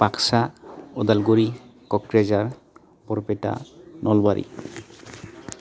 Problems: constant background noise